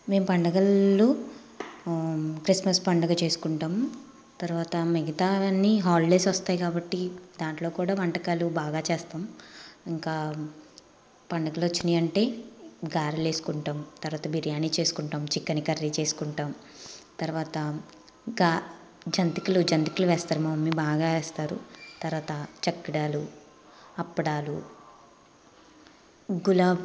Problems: constant background noise